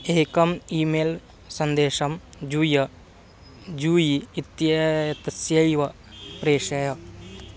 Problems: background sounds at intervals